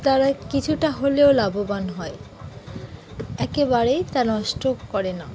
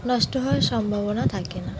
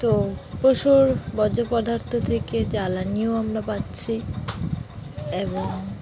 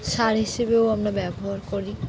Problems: constant background noise, continuous background conversations